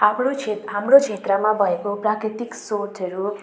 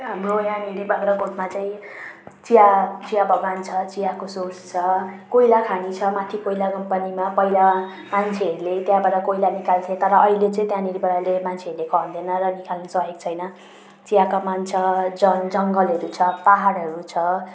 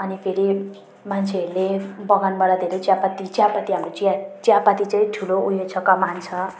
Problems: constant background noise